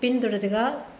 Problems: constant background noise